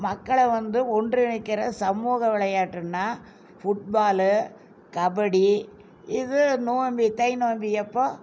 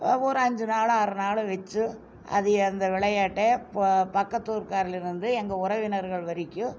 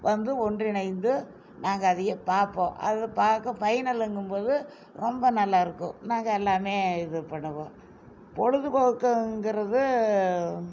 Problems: none marked